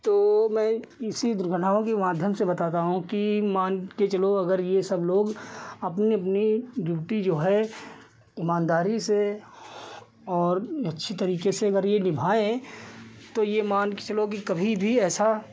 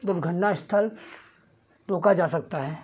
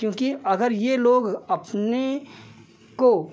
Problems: none marked